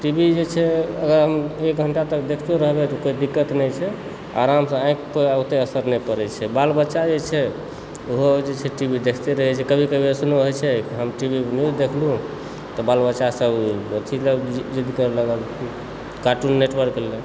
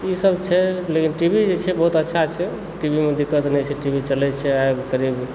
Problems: constant background noise